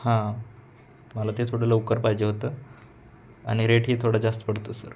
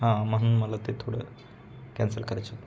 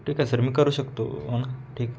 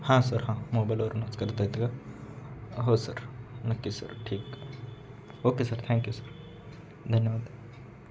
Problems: constant background noise